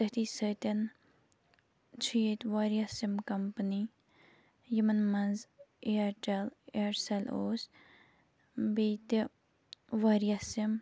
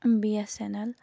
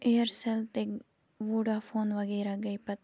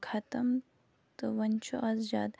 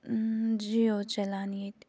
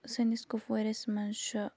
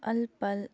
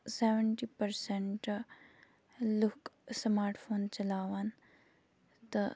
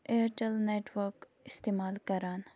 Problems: none marked